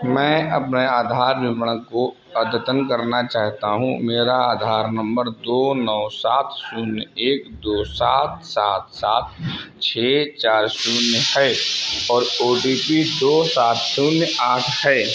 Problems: constant background noise